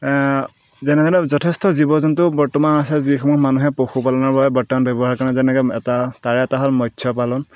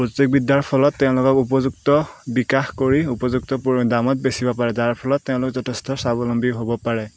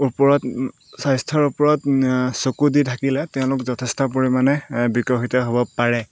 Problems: background sounds at intervals